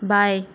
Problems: constant background noise